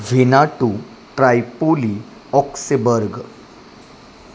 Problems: constant background noise